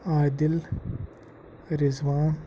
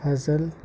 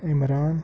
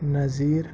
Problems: background sounds at intervals